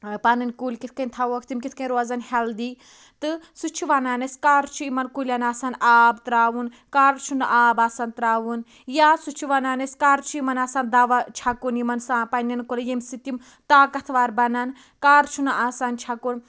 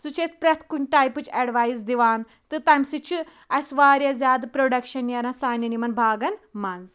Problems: none marked